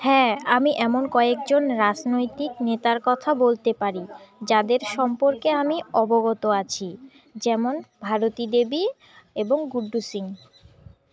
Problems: background sounds at intervals, continuous background conversations